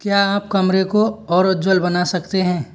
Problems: none marked